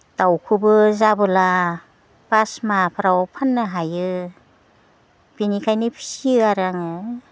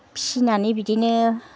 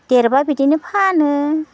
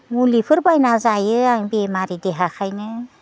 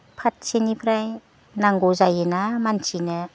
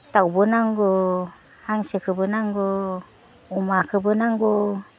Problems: none marked